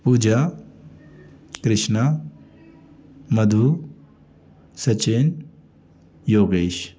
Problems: constant background noise, background conversations at intervals